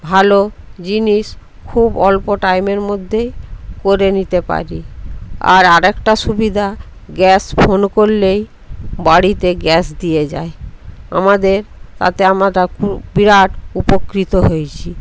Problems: constant background noise, background conversations at intervals